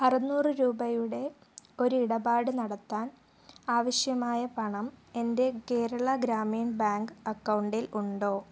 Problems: low volume